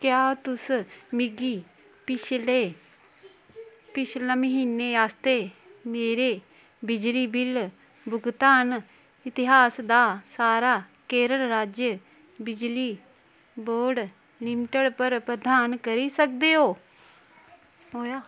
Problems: constant background noise